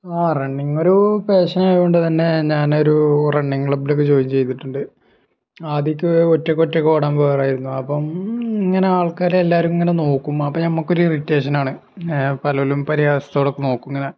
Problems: none marked